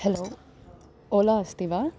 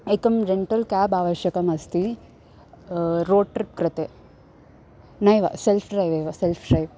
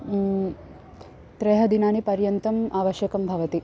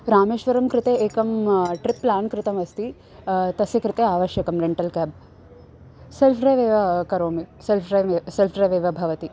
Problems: constant background noise